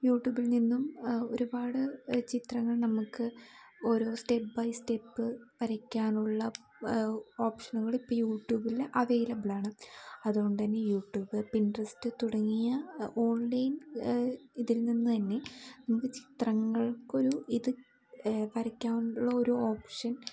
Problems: background sounds at intervals